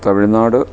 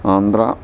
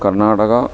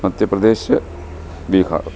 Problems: none marked